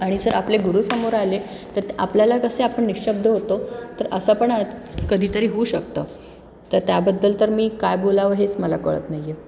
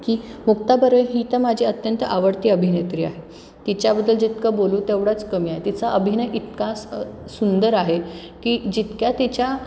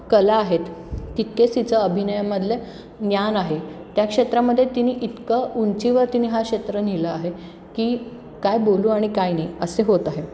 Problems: background sounds at intervals